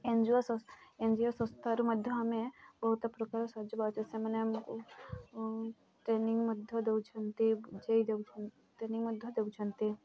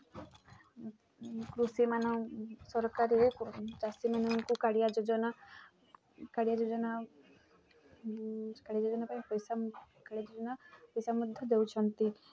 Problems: constant background noise, continuous background conversations